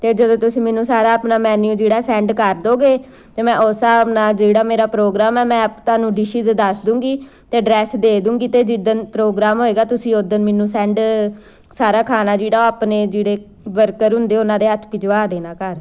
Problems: background sounds at intervals